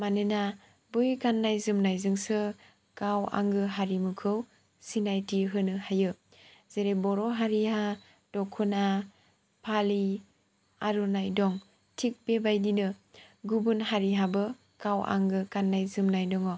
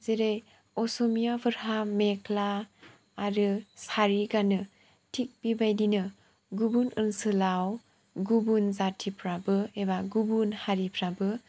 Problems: none marked